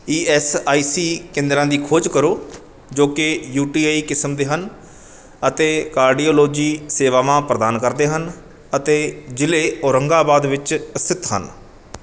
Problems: none marked